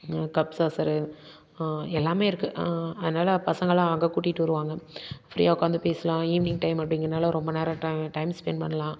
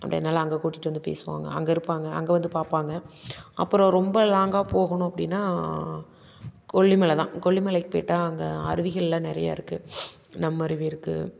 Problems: constant background noise